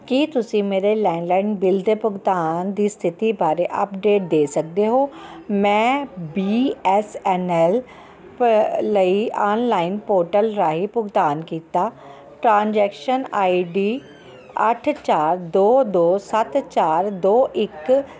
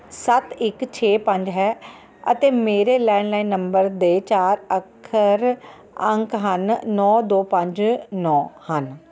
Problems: background sounds at intervals